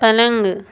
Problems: none marked